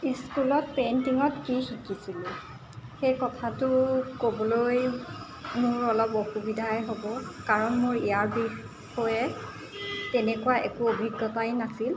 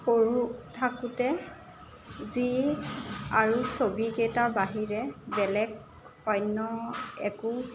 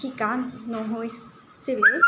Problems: constant background noise